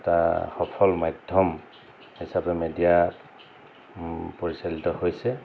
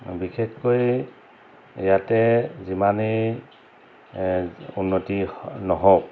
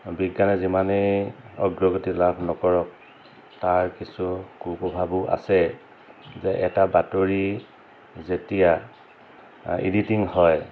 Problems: constant background noise